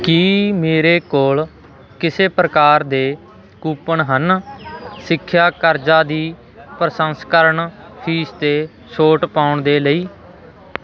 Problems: continuous background conversations